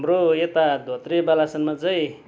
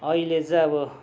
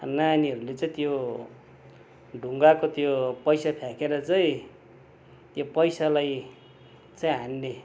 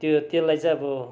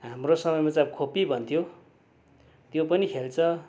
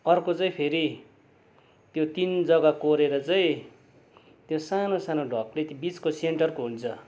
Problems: constant background noise